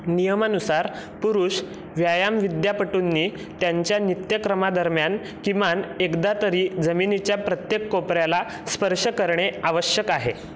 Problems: constant background noise